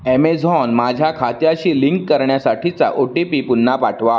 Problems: none marked